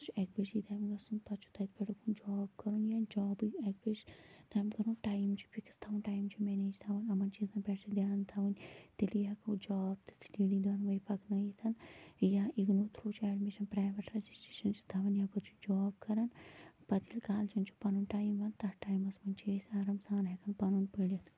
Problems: constant background noise, low volume